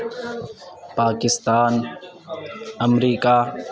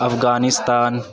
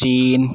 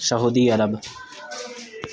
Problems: constant background noise